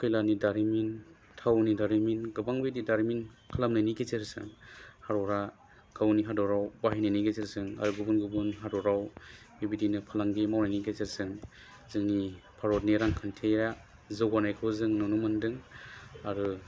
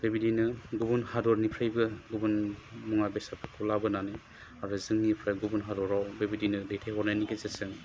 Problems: constant background noise